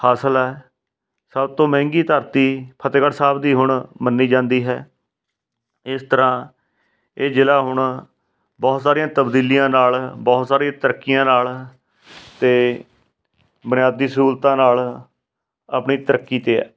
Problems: background sounds at intervals